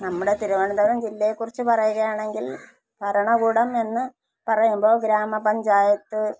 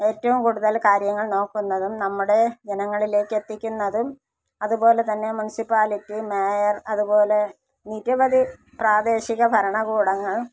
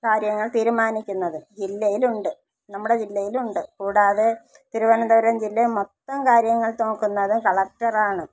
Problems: low volume